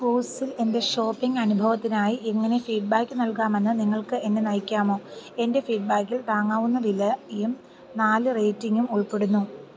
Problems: background sounds at intervals, low volume